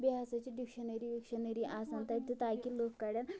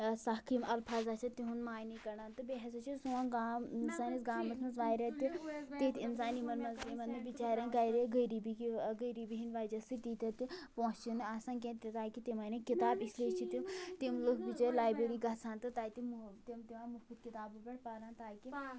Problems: low volume